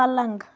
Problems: none marked